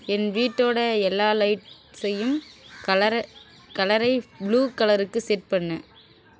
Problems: none marked